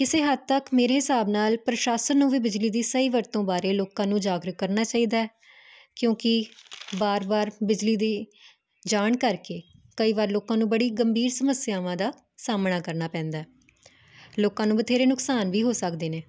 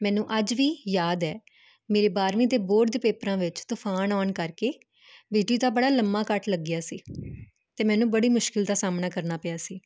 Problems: constant background noise